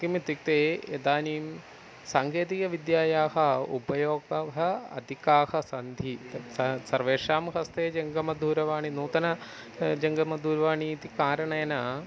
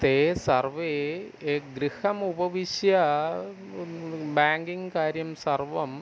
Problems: background sounds at intervals